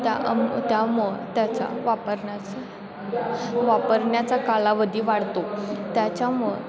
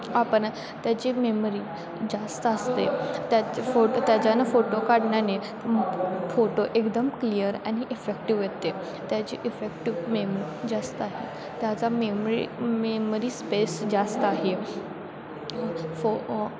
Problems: constant background noise, continuous background conversations